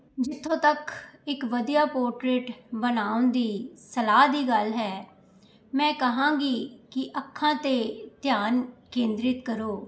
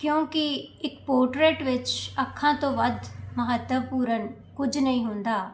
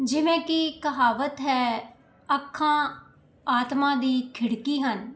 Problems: none marked